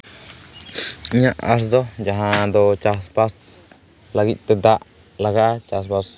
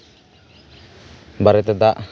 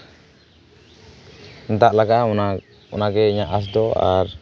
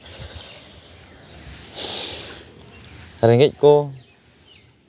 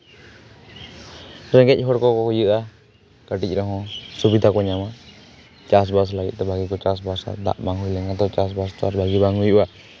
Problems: background sounds at intervals